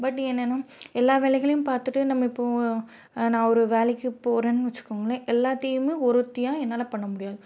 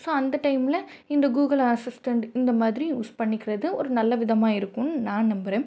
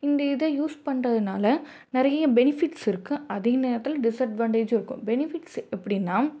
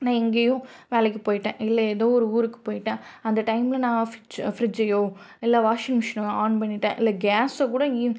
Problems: none marked